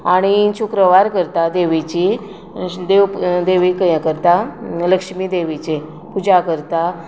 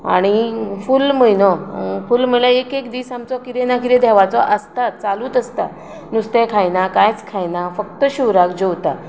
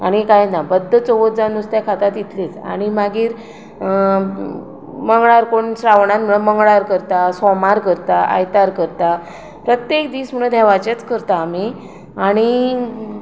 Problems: none marked